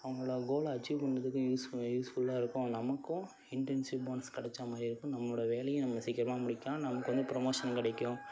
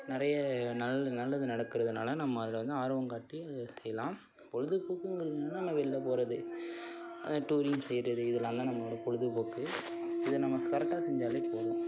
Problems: background sounds at intervals